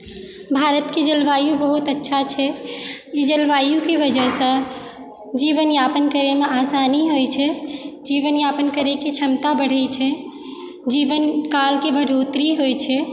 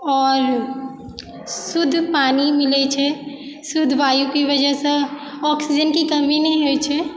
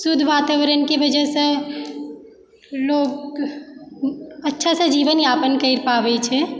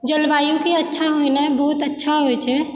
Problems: background sounds at intervals, background conversations at intervals